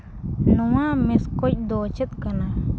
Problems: constant background noise